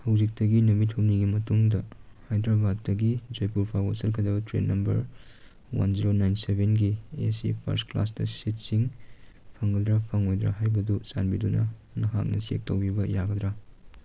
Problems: none marked